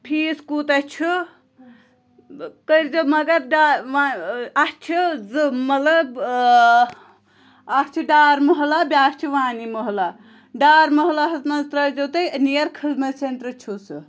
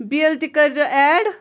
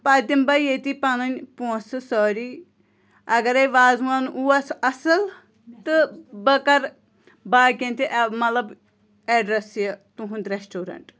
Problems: background conversations at intervals